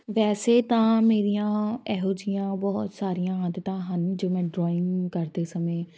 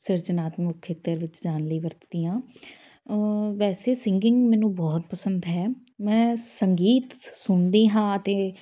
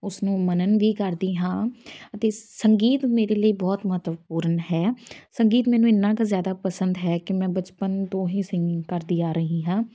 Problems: background sounds at intervals